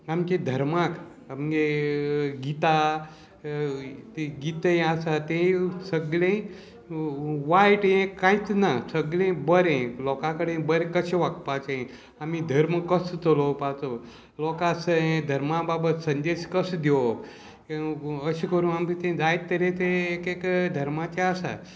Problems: constant background noise